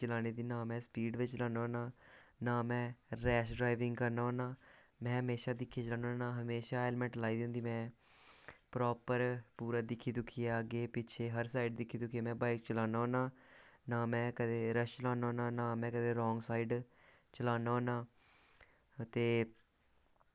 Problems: none marked